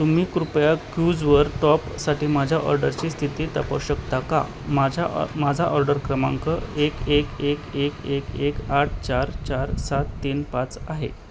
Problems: none marked